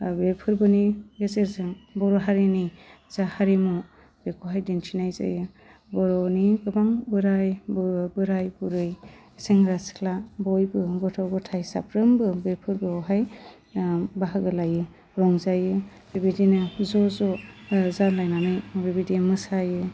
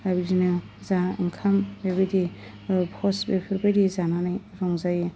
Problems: low volume